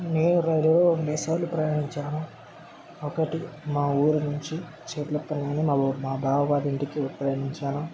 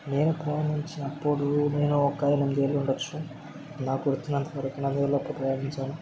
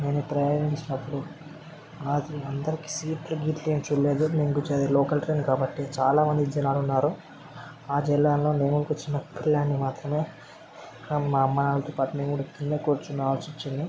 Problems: constant background noise, background conversations at intervals